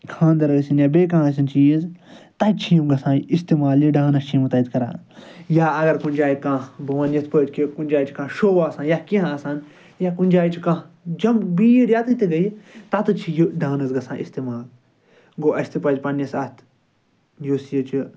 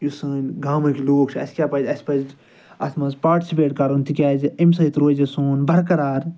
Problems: none marked